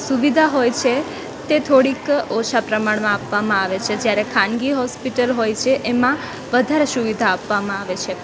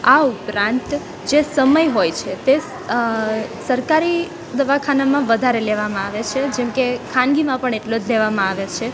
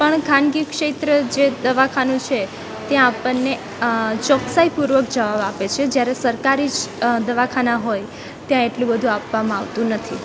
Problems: constant background noise, background conversations at intervals